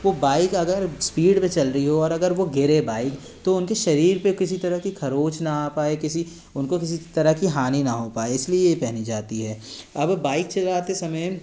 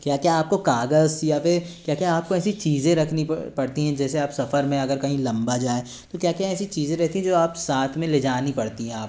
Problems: constant background noise, background conversations at intervals